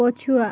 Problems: constant background noise